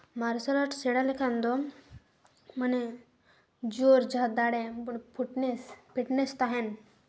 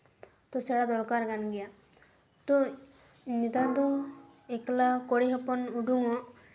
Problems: echo